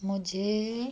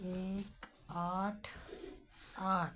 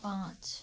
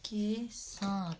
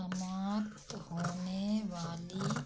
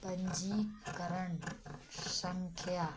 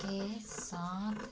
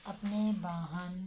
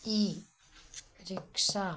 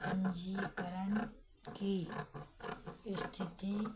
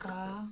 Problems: background sounds at intervals